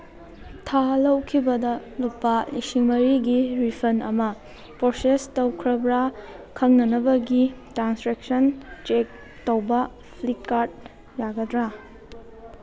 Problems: background sounds at intervals